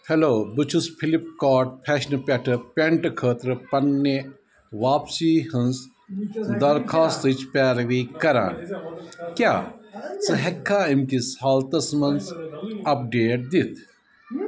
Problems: constant background noise, background conversations at intervals